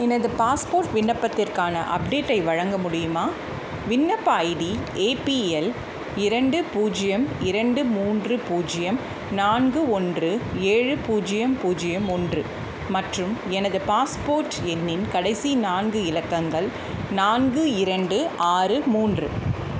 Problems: constant background noise